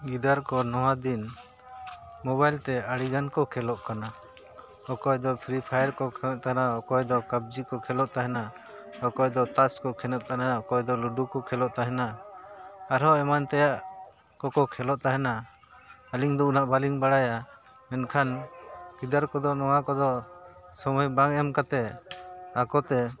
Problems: constant background noise